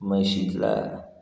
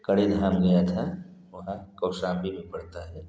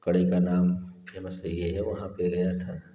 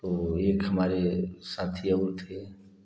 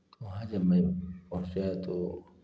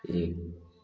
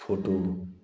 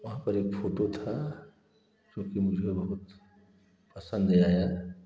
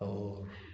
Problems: echo